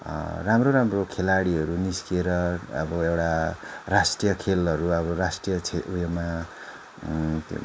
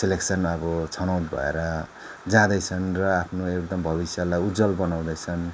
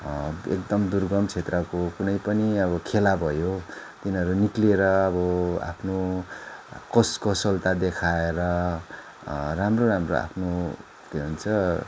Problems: none marked